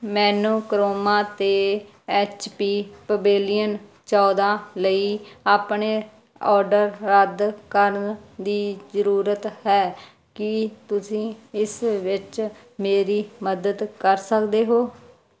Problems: background sounds at intervals